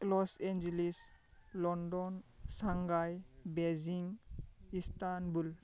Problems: constant background noise